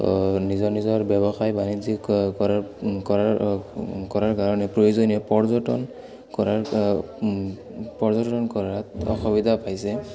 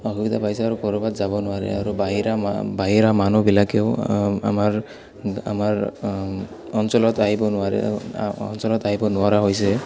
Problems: background sounds at intervals, background conversations at intervals